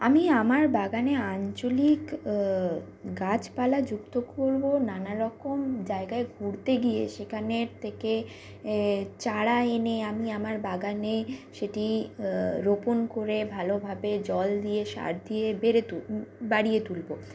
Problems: none marked